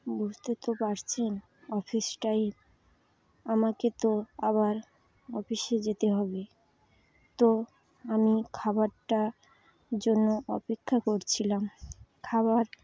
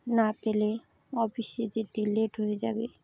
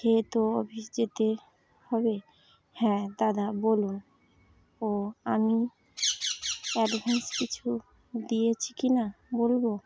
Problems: constant background noise, continuous background conversations